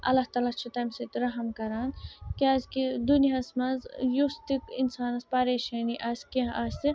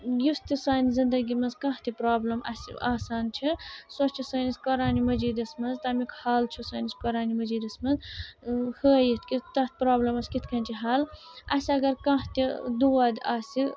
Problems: constant background noise